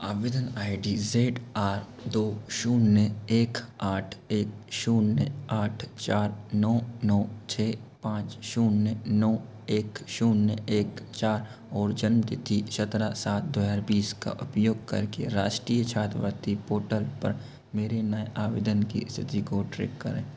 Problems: constant background noise